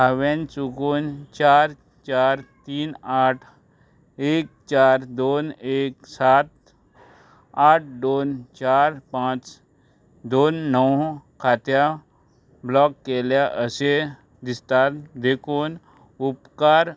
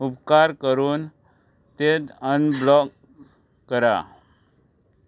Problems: background sounds at intervals